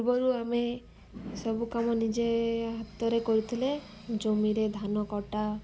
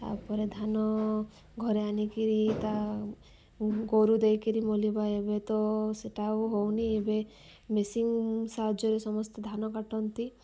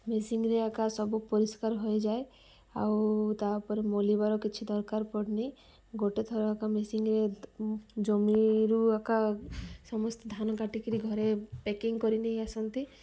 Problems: none marked